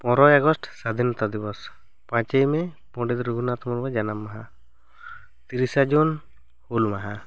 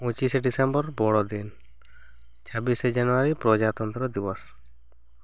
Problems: none marked